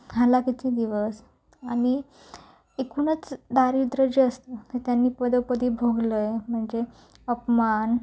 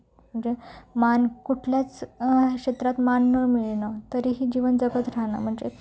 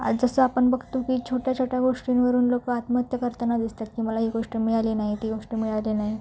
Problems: low volume